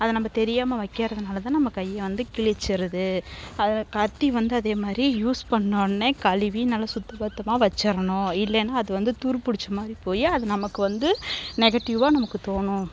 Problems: background sounds at intervals